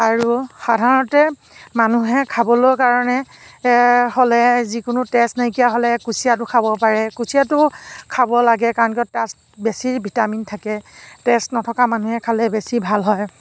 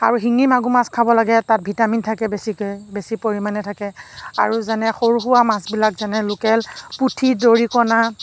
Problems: background sounds at intervals